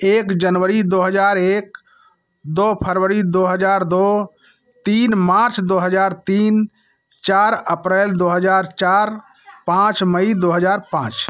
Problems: background sounds at intervals